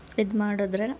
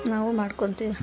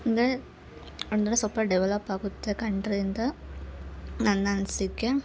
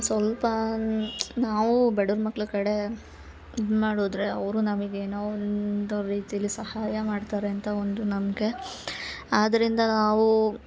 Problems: background sounds at intervals